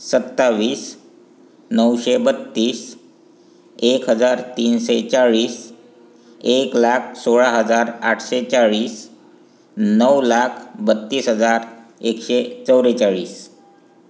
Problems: constant background noise